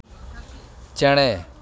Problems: constant background noise, background conversations at intervals